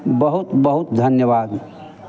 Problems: constant background noise